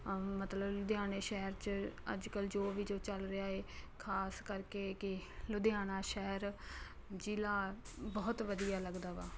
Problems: constant background noise